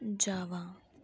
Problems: none marked